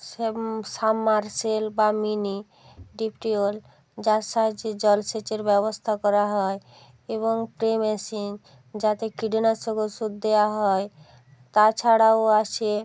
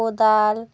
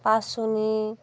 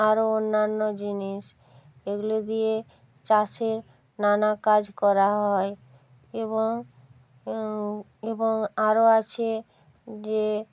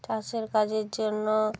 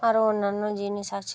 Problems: background conversations at intervals